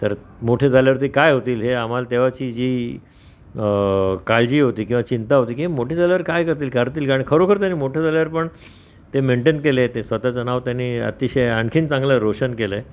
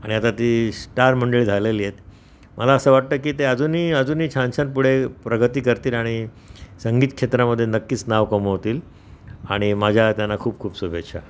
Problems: none marked